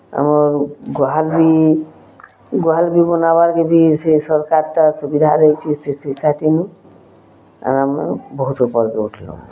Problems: constant background noise, continuous background conversations